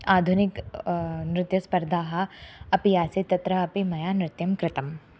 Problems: constant background noise